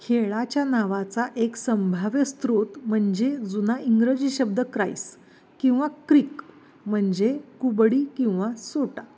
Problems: none marked